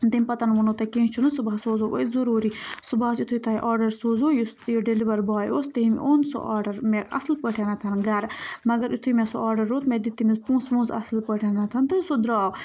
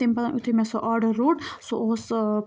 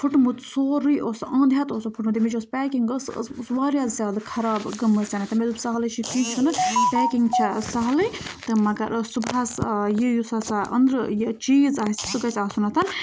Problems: background sounds at intervals